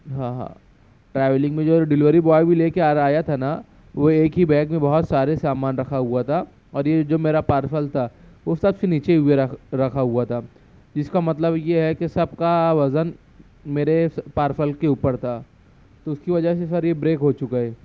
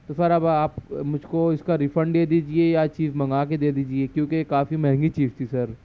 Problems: none marked